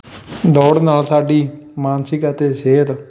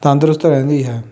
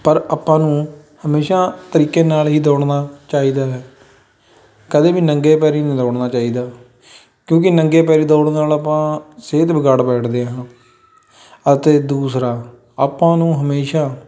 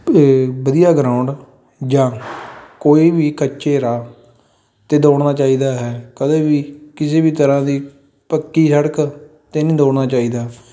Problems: background sounds at intervals, background conversations at intervals